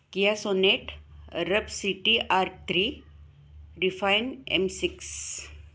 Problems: none marked